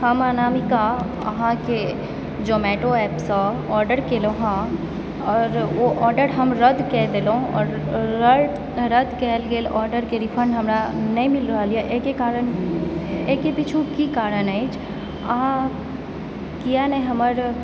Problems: constant background noise, background conversations at intervals